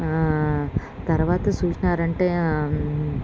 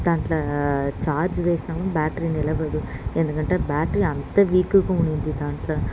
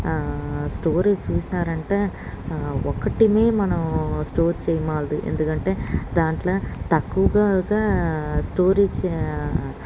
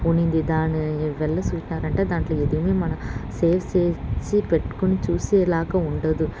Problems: constant background noise